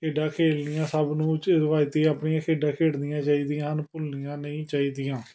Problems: background sounds at intervals, background conversations at intervals